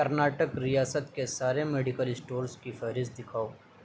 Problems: constant background noise